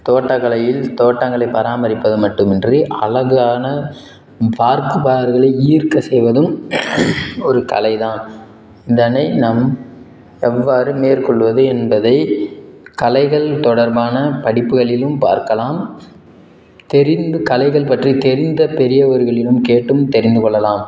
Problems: background sounds at intervals